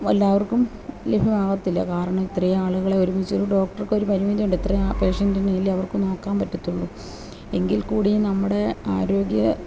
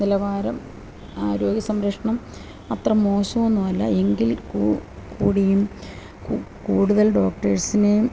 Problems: none marked